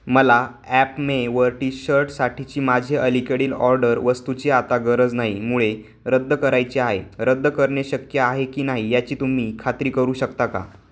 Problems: constant background noise